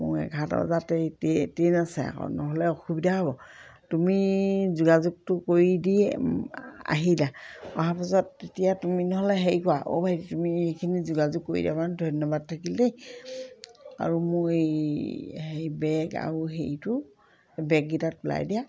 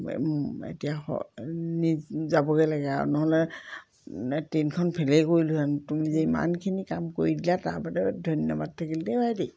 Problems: none marked